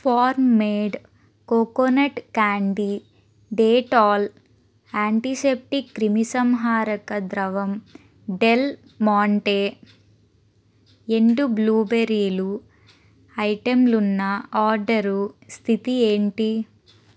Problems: constant background noise